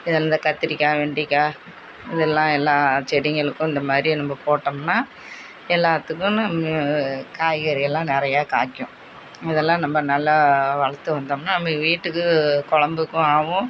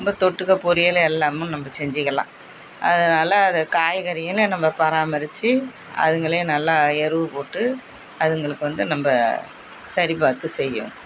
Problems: none marked